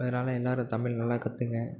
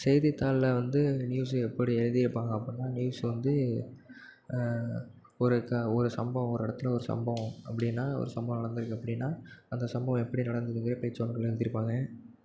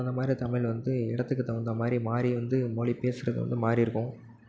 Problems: constant background noise